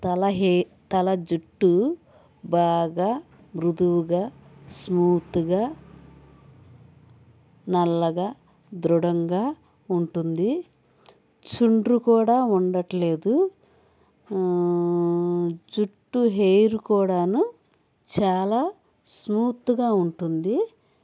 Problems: background sounds at intervals